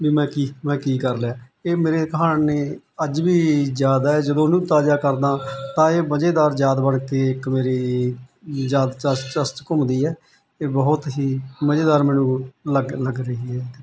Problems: none marked